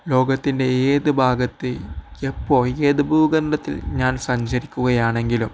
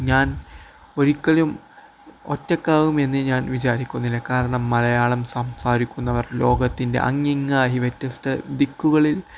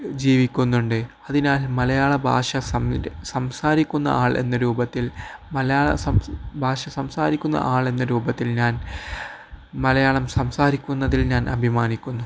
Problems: none marked